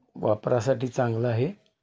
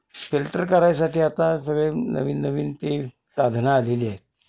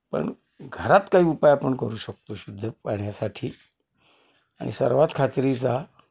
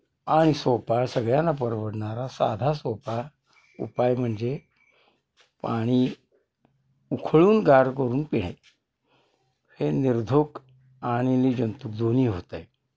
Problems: constant background noise, background conversations at intervals